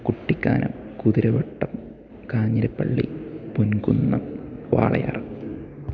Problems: none marked